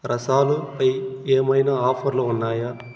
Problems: constant background noise